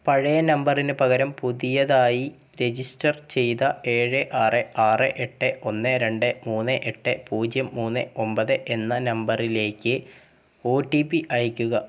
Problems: background sounds at intervals